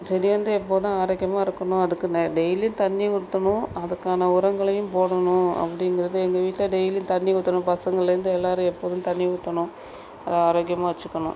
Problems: constant background noise